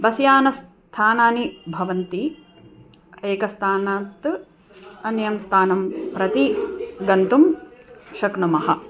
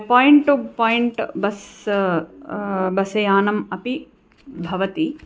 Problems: background conversations at intervals